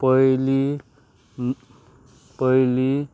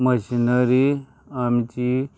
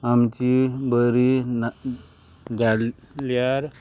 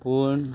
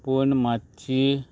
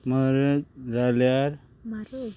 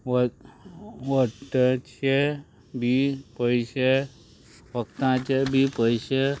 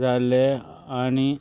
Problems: constant background noise